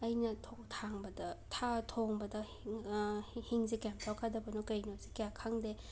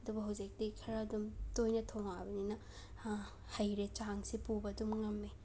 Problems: background sounds at intervals